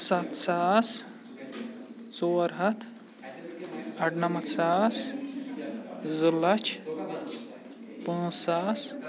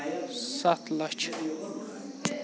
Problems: constant background noise, continuous background conversations